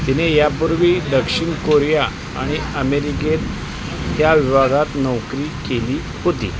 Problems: constant background noise